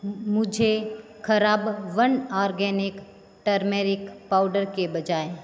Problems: constant background noise, background conversations at intervals